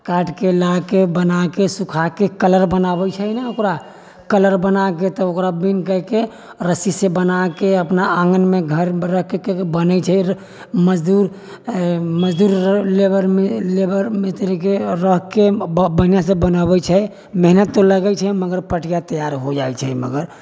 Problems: background sounds at intervals